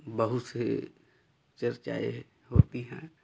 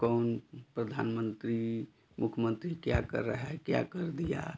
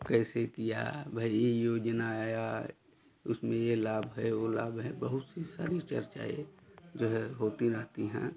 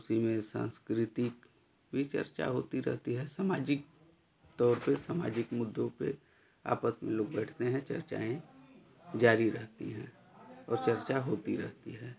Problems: constant background noise, continuous background conversations